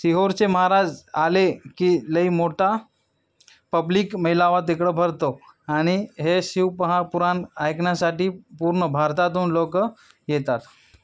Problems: background sounds at intervals